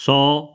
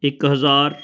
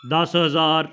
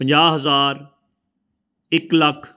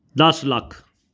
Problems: background sounds at intervals